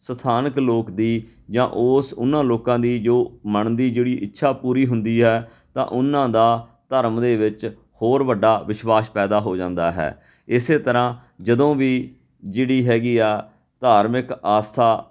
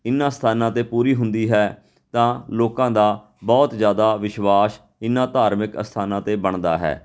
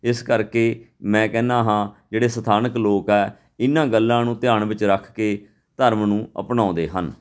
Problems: none marked